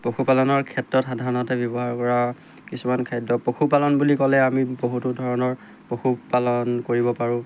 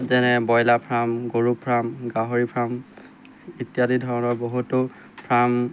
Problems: constant background noise